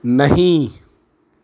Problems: constant background noise